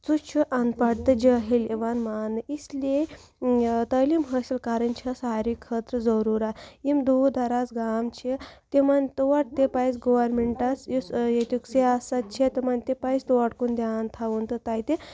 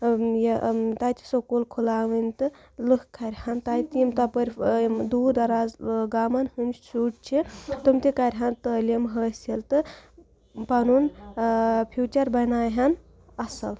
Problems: constant background noise